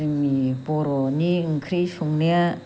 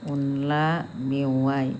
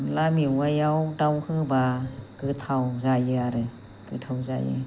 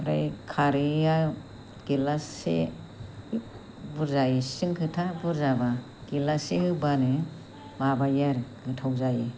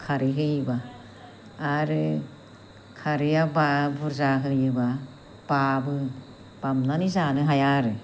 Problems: low volume